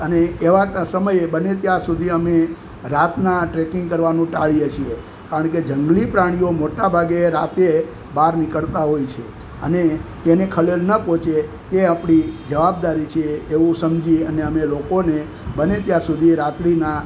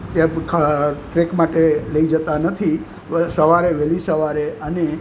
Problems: constant background noise